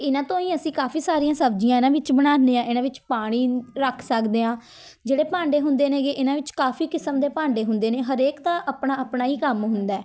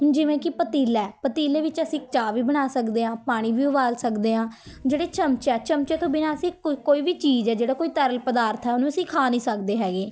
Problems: continuous background conversations